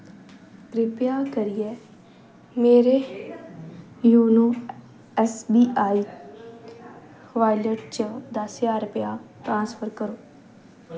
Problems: constant background noise